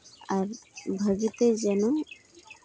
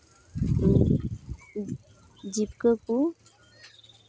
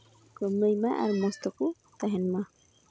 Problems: constant background noise, background conversations at intervals